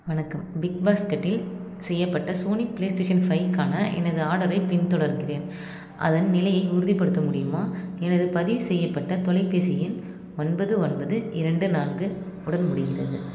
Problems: constant background noise